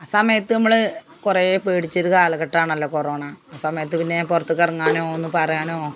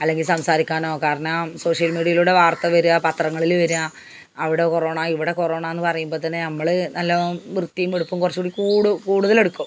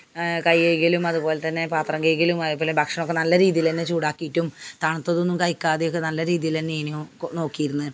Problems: background sounds at intervals